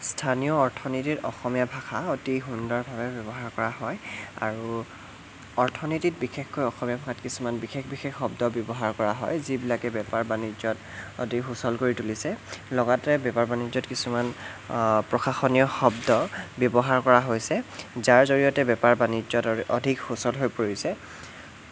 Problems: constant background noise